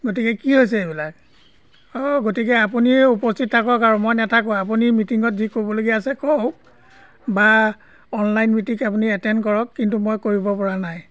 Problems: constant background noise